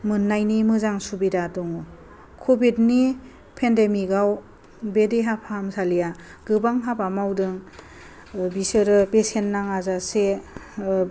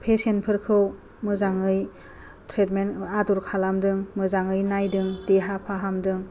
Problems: low volume